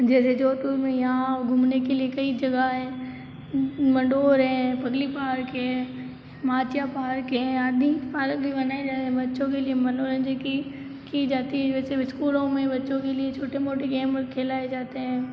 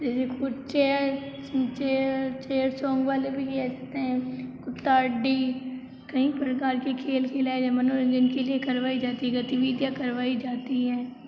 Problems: constant background noise